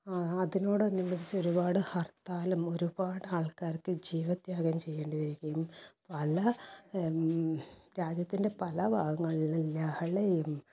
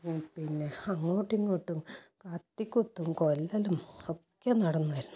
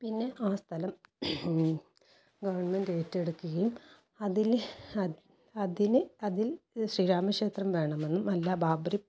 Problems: low volume